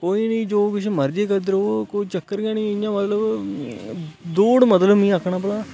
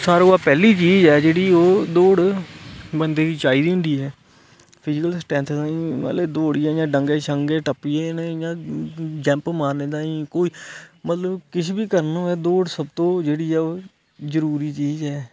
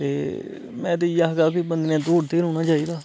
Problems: constant background noise